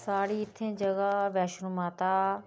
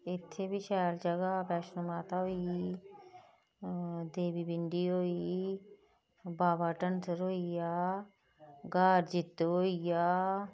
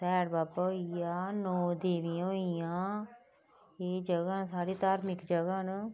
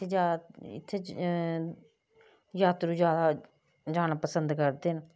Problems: low volume